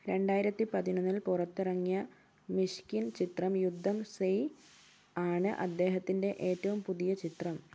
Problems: background sounds at intervals